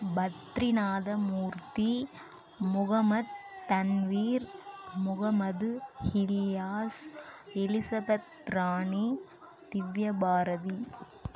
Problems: none marked